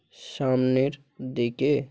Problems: none marked